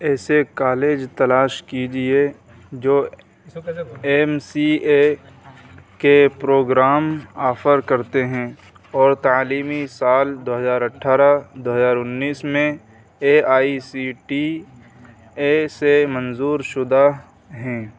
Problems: constant background noise